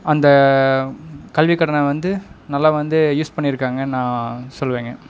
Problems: background sounds at intervals